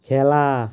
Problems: constant background noise